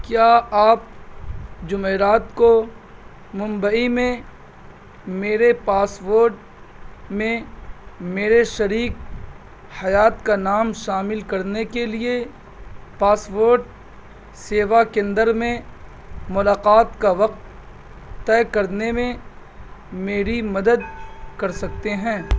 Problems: constant background noise